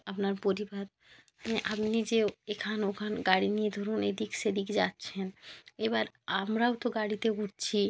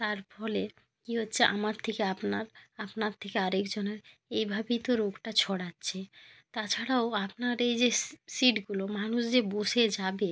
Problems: none marked